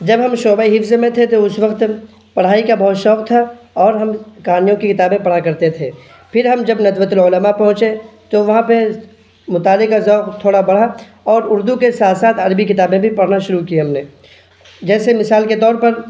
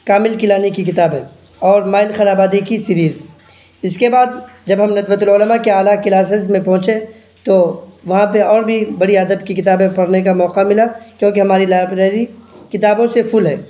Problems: background sounds at intervals